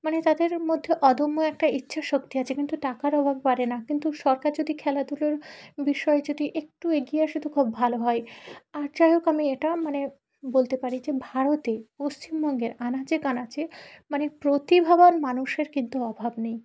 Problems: background sounds at intervals, background conversations at intervals